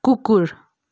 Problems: none marked